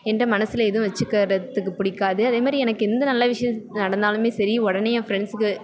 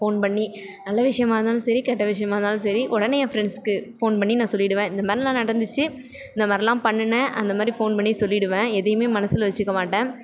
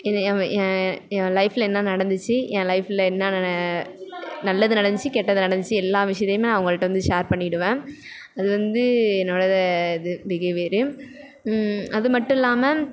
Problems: none marked